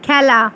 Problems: none marked